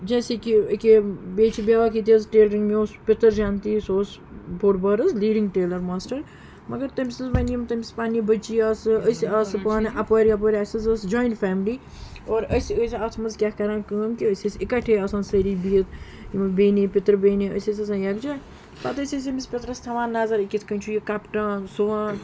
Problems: background sounds at intervals, background conversations at intervals